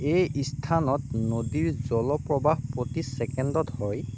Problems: none marked